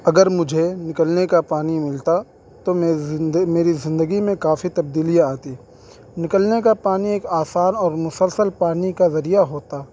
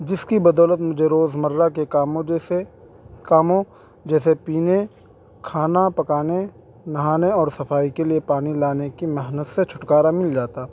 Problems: constant background noise